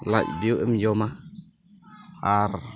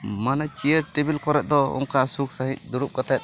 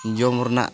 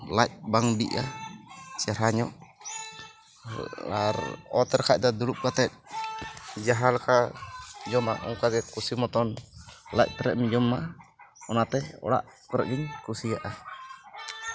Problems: background sounds at intervals